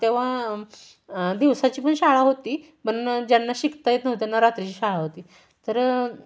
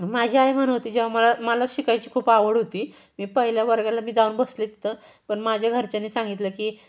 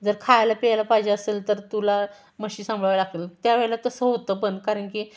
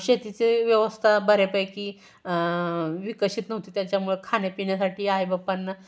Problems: none marked